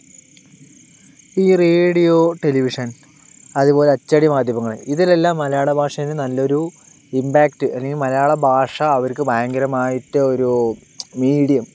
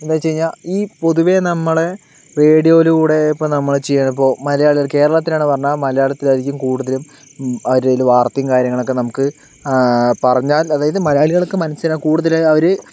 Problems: none marked